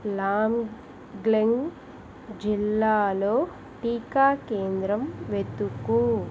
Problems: constant background noise